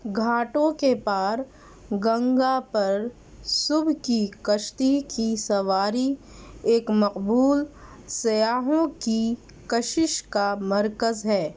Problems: none marked